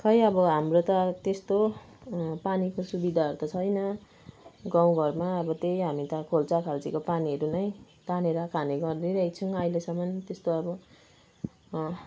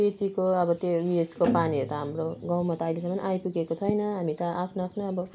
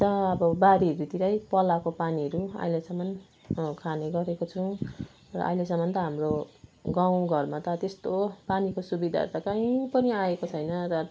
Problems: none marked